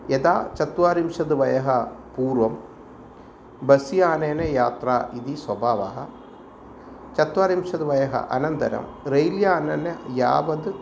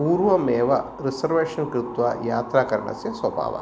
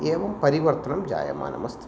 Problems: constant background noise